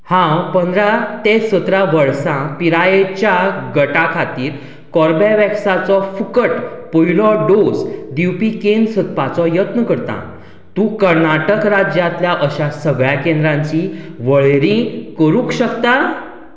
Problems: none marked